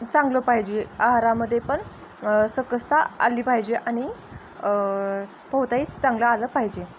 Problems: constant background noise